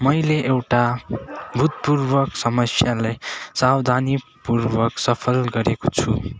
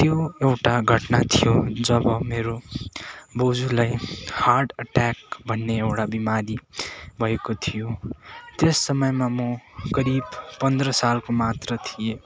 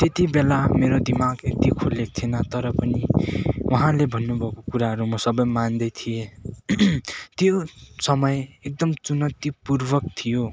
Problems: none marked